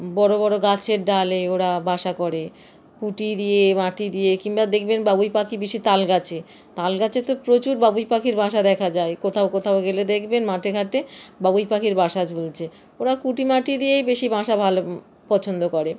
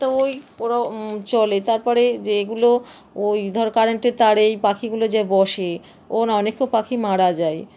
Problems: constant background noise